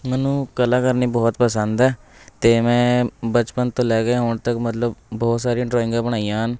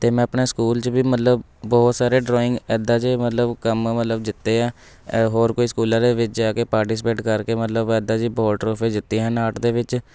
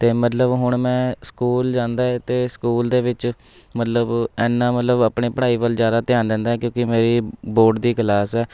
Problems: background sounds at intervals, background conversations at intervals